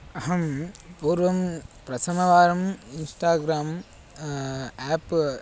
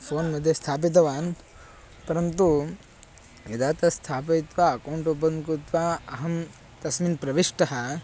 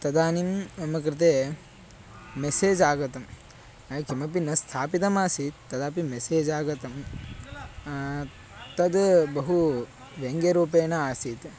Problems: none marked